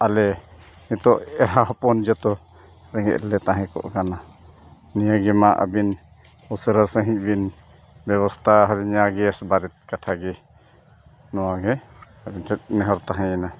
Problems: constant background noise